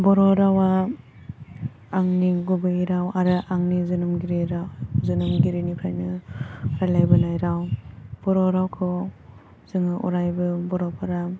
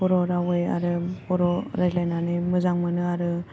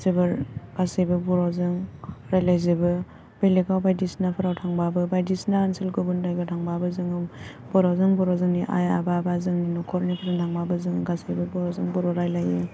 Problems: low volume